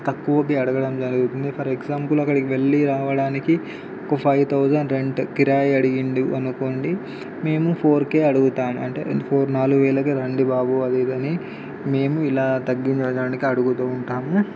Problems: constant background noise